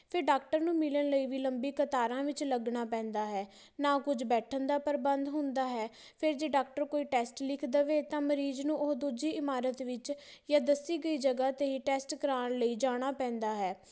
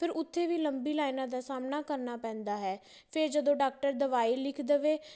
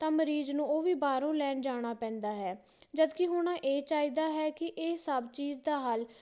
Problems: background sounds at intervals